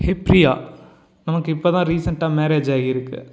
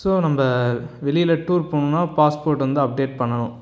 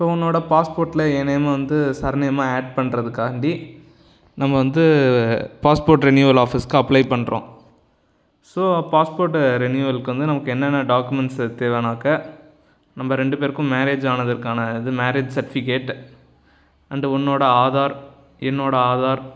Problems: background sounds at intervals